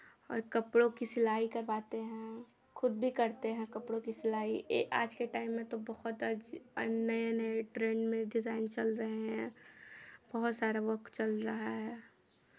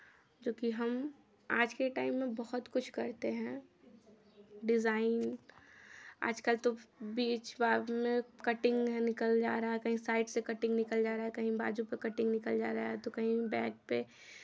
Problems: none marked